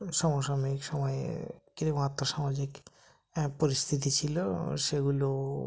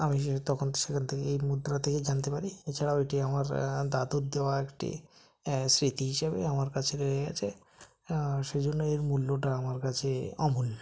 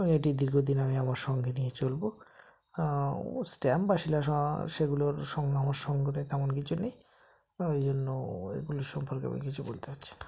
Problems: none marked